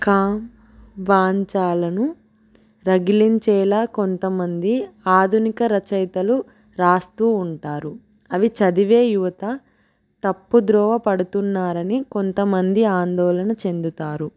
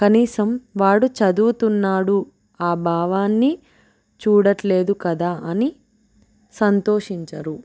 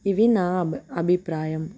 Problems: none marked